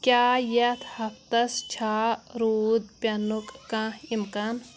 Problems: background sounds at intervals